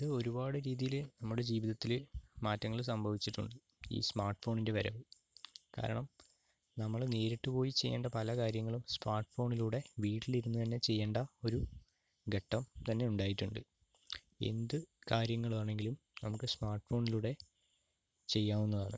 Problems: low volume